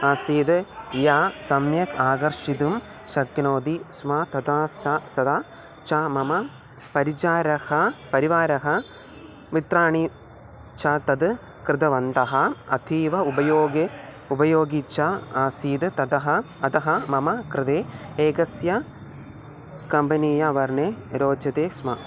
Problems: background sounds at intervals